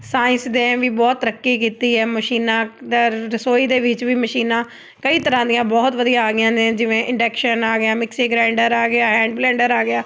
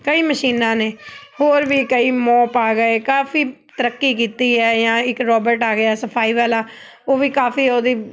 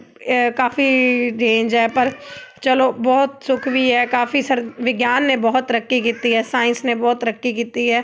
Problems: background sounds at intervals